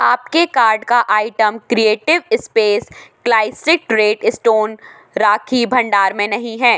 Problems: background sounds at intervals